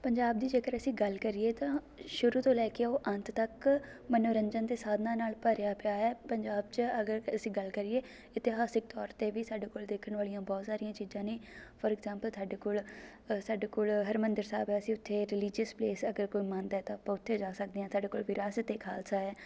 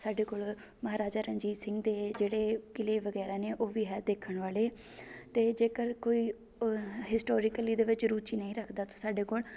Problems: background sounds at intervals